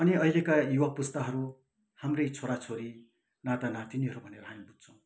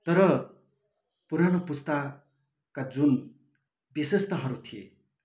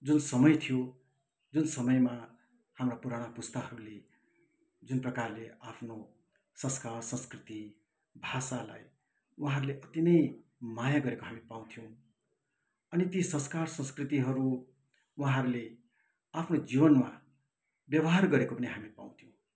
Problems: none marked